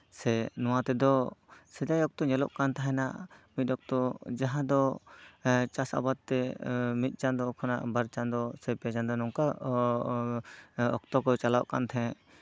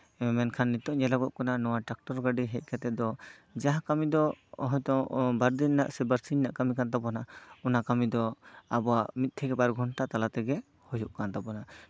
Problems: none marked